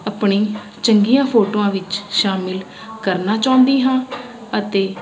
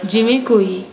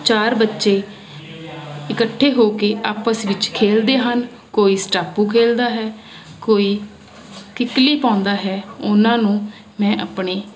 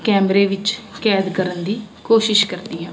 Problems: constant background noise